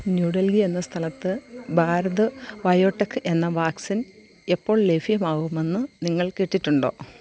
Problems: constant background noise, low volume